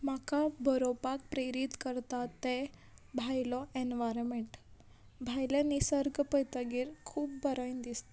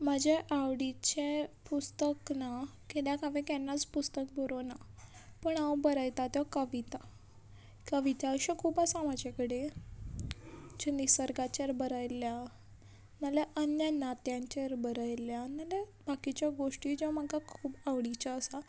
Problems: background sounds at intervals